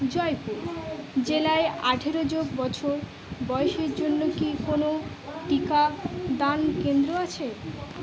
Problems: constant background noise, continuous background conversations